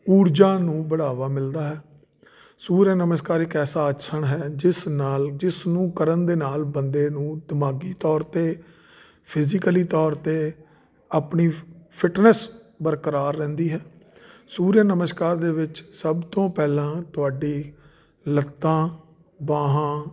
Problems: none marked